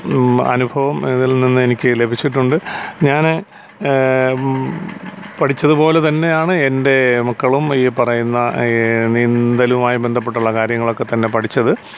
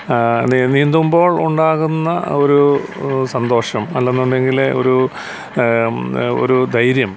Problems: constant background noise